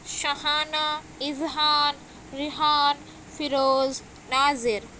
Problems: constant background noise